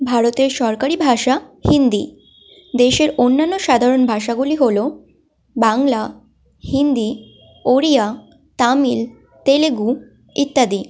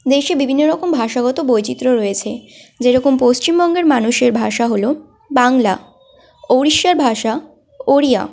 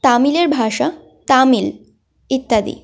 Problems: constant background noise